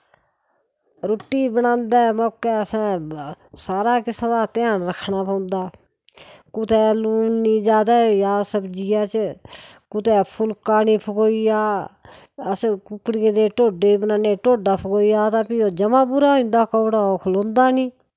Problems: none marked